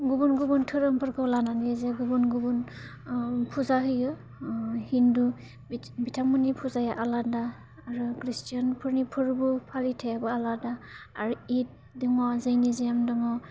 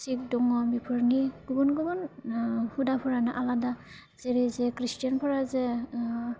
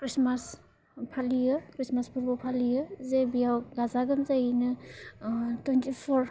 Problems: low volume